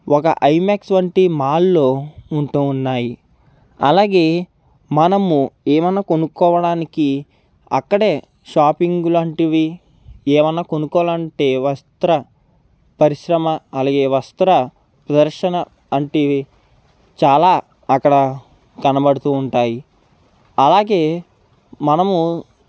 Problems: background sounds at intervals